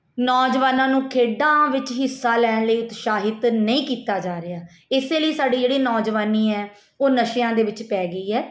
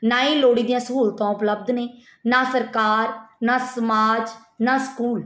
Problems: none marked